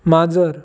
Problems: constant background noise